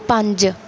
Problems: none marked